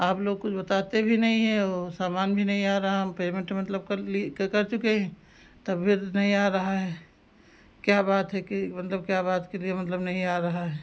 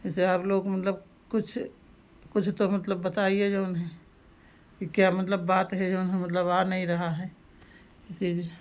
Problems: background sounds at intervals